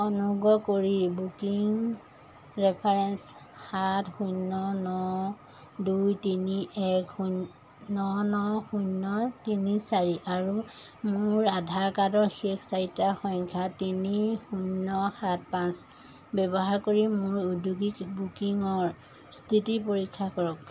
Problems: constant background noise